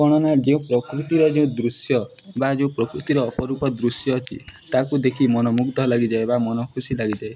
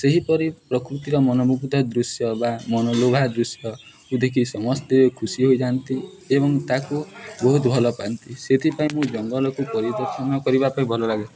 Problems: none marked